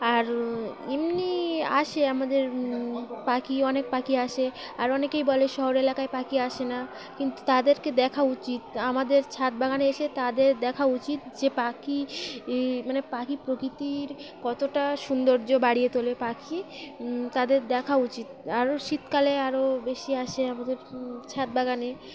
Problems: constant background noise, background conversations at intervals